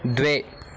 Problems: background sounds at intervals